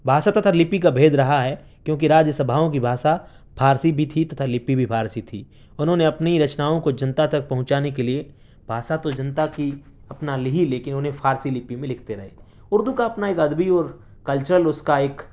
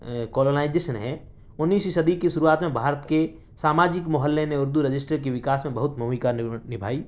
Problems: none marked